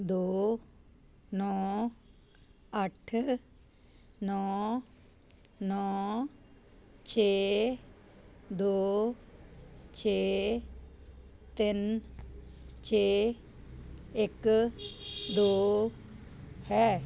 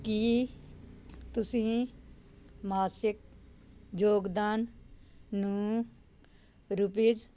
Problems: constant background noise